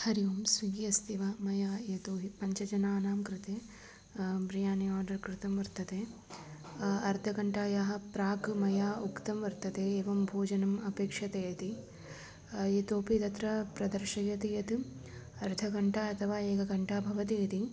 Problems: background sounds at intervals